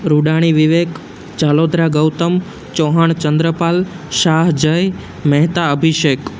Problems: none marked